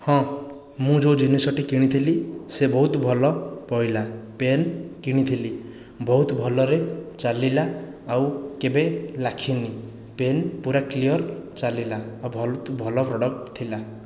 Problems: none marked